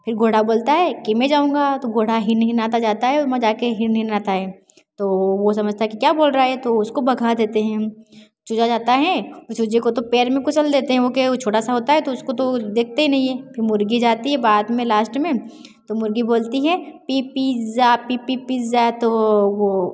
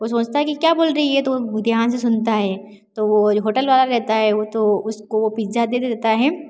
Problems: none marked